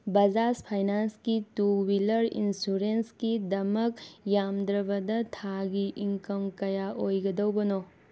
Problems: background sounds at intervals